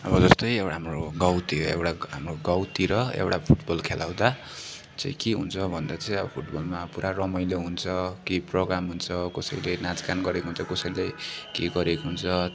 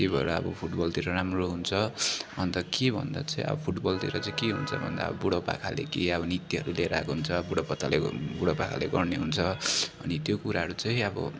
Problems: continuous background conversations